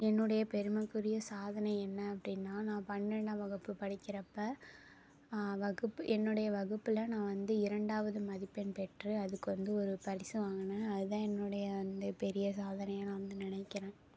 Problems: low volume